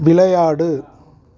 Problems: none marked